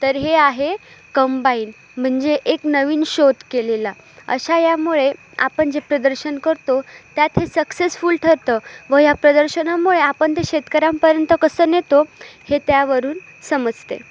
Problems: none marked